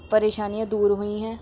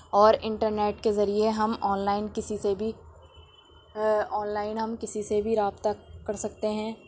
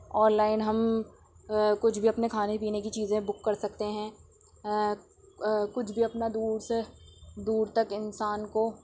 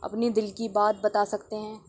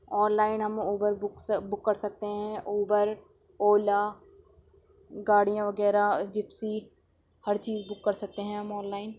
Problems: constant background noise